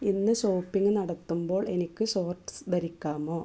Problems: low volume